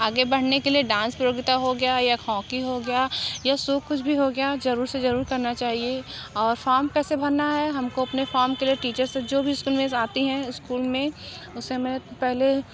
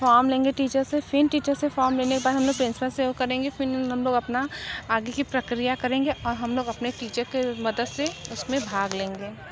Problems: constant background noise, continuous background conversations